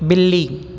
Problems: constant background noise